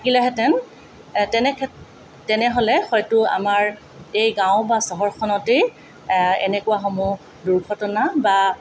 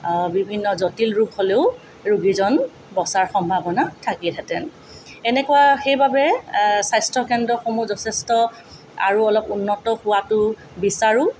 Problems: none marked